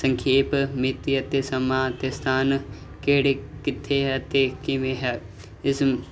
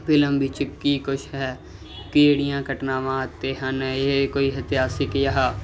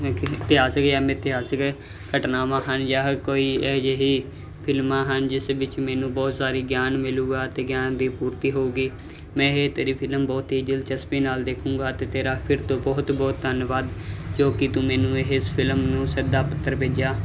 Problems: background sounds at intervals